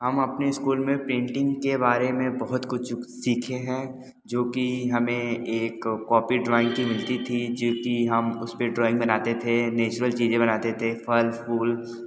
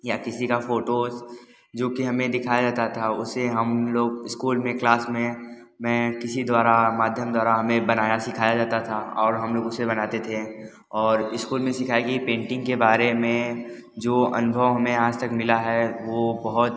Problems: background sounds at intervals